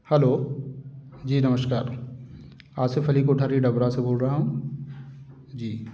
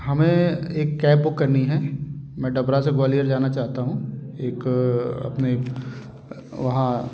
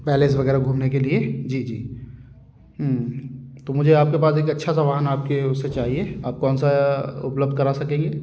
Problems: constant background noise, background conversations at intervals